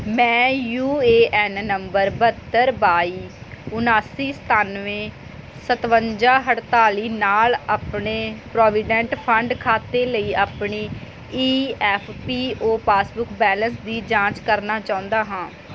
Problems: none marked